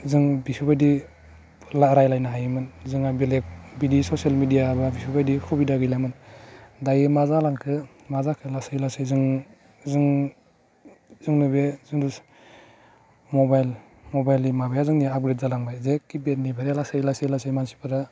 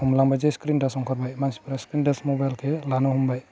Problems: constant background noise